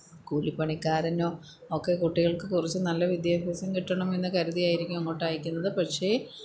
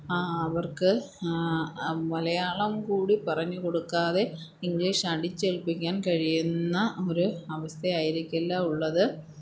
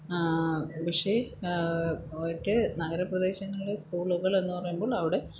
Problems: background sounds at intervals